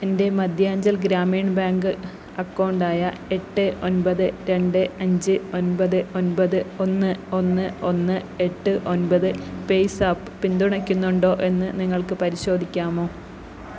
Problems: none marked